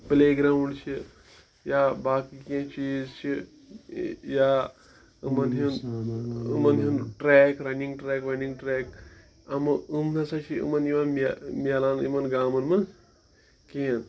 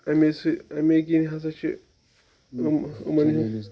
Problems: continuous background conversations